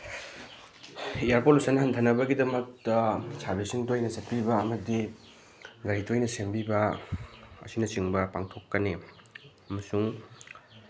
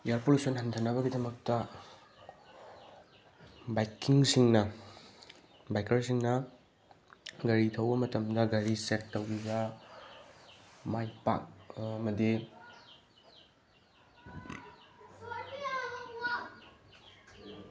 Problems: background conversations at intervals